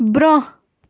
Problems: none marked